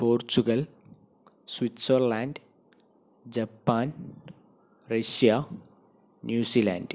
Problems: none marked